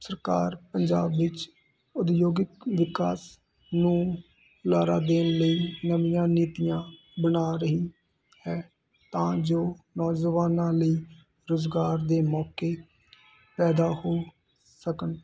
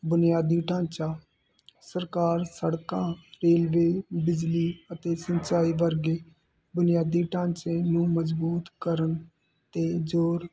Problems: constant background noise